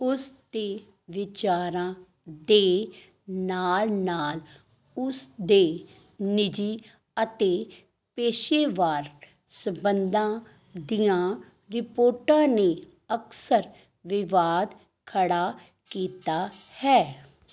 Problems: background sounds at intervals